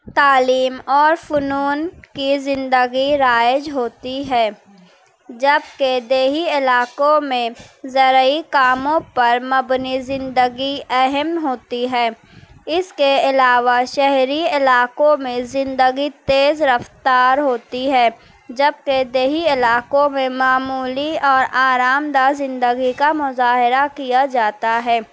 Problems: none marked